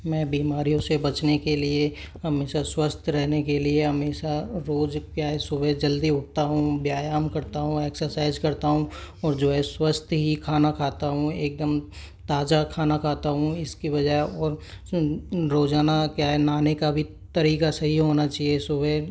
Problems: constant background noise